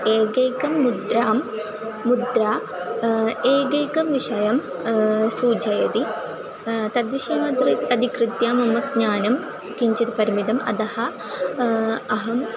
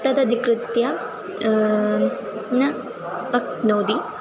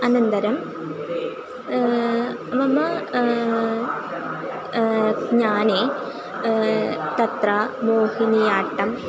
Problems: constant background noise, continuous background conversations